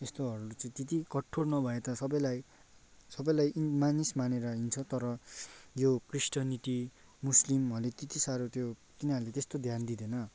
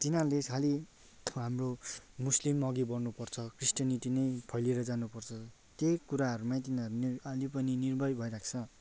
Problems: background sounds at intervals